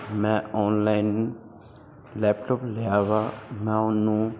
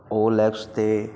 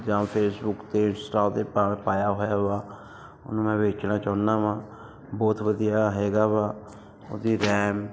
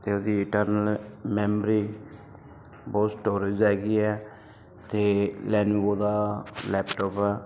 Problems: background sounds at intervals